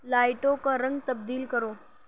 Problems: background sounds at intervals